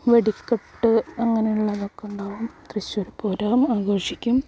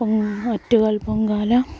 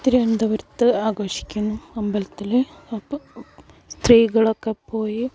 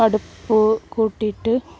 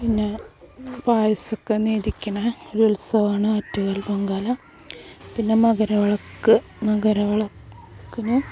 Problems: background sounds at intervals